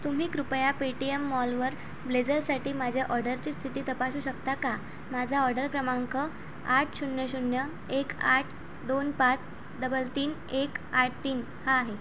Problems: constant background noise